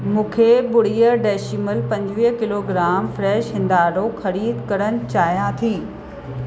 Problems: constant background noise, echo